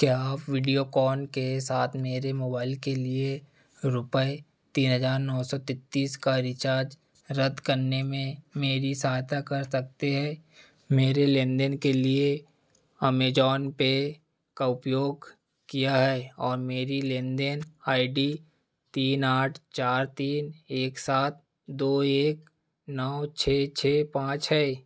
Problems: background sounds at intervals